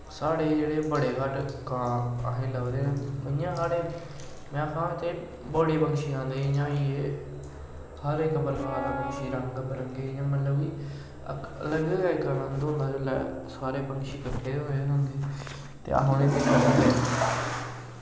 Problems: constant background noise, echo